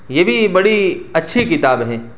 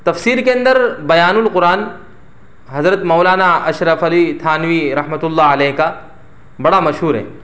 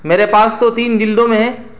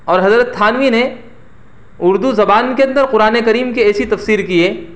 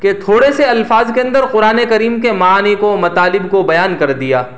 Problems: none marked